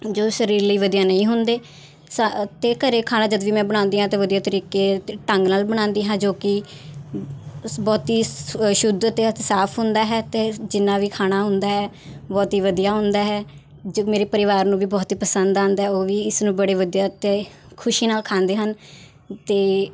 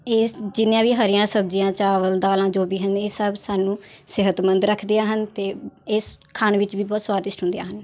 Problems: none marked